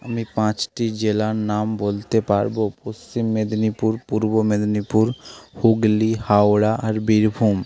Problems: constant background noise